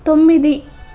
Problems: constant background noise